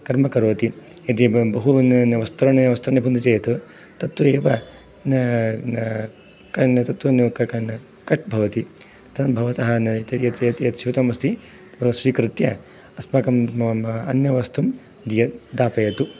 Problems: none marked